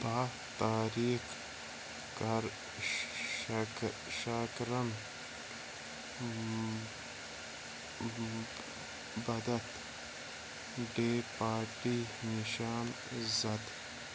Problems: constant background noise, low volume